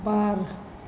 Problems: background sounds at intervals